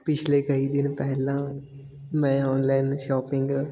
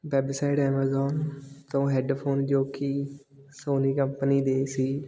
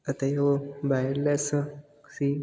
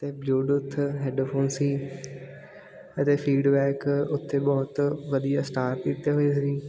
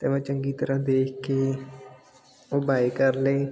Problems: constant background noise, continuous background conversations